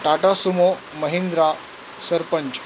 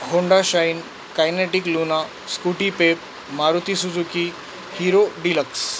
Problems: constant background noise